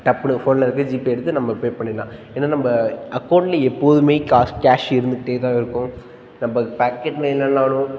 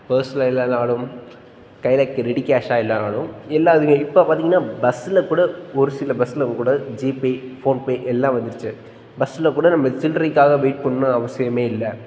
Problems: constant background noise